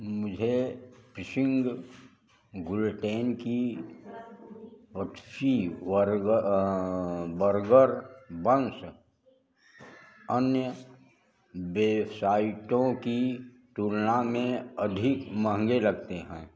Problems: background sounds at intervals